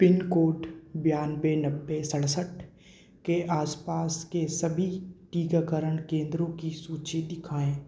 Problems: echo